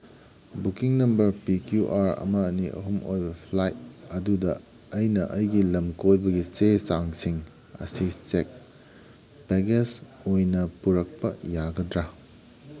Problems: background sounds at intervals, background conversations at intervals